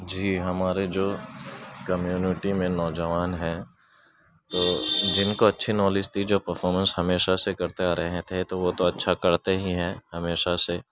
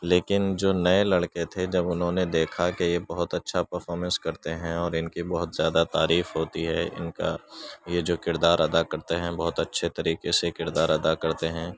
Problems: constant background noise